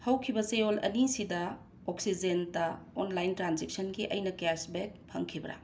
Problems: none marked